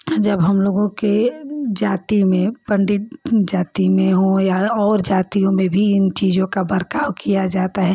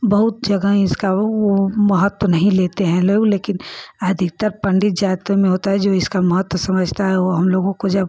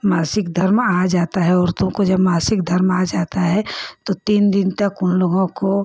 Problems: none marked